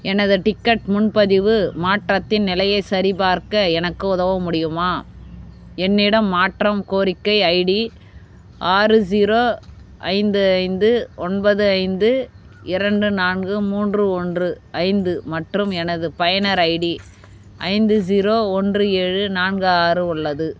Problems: none marked